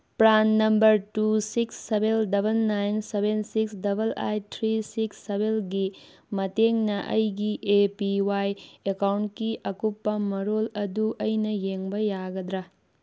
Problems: background sounds at intervals